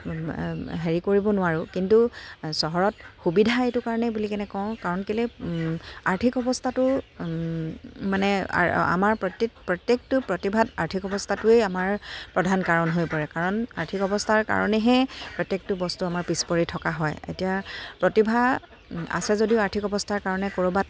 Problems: none marked